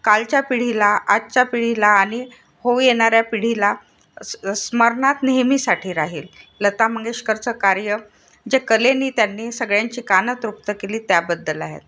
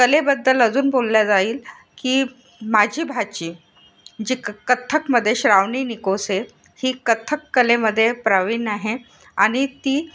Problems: constant background noise